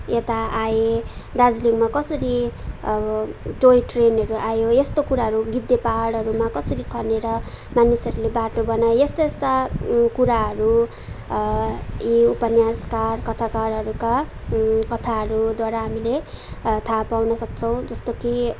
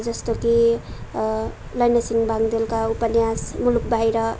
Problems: background sounds at intervals